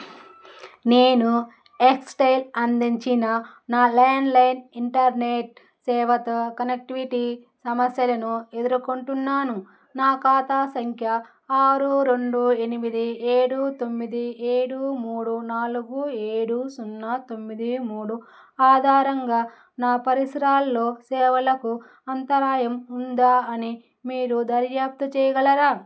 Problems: none marked